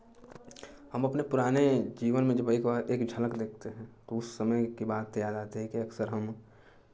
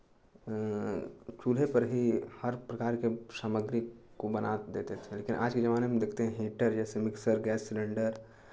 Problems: constant background noise, continuous background conversations